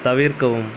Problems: constant background noise